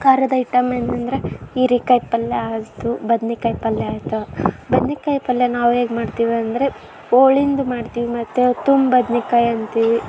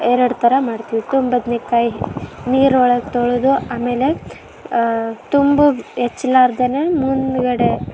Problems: background sounds at intervals